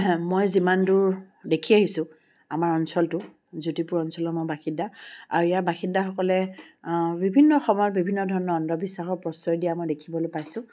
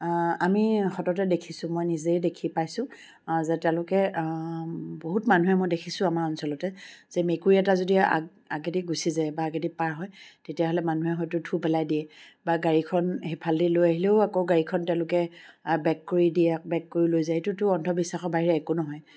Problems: background sounds at intervals